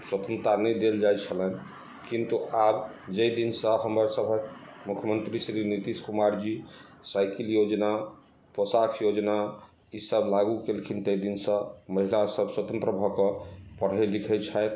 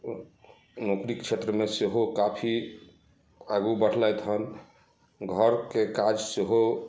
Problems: none marked